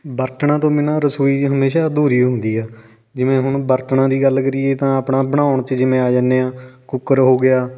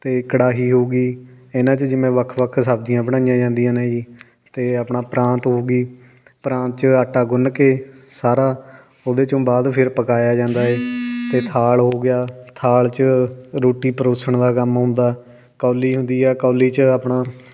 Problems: none marked